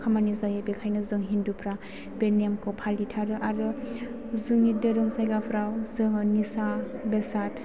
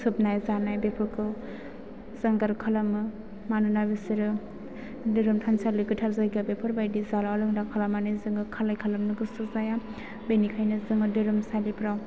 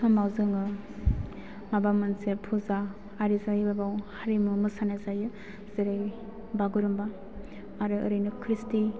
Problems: background conversations at intervals